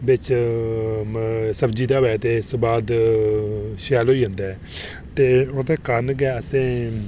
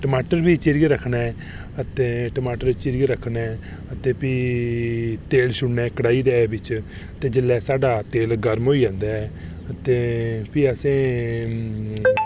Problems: none marked